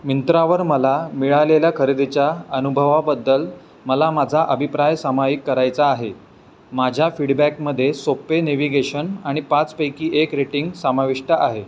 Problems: background sounds at intervals